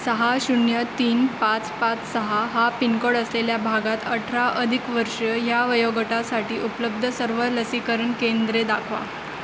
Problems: constant background noise